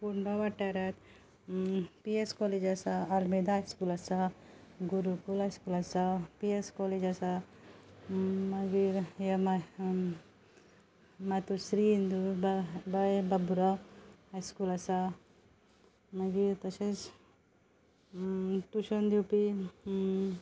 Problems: background sounds at intervals